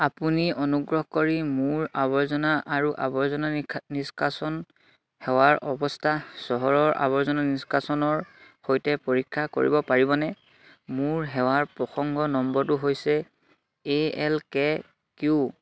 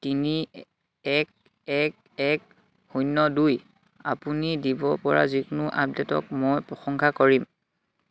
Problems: none marked